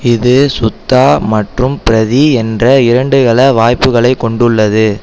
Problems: constant background noise